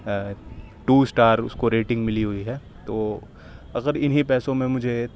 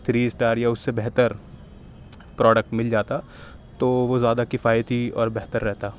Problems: background sounds at intervals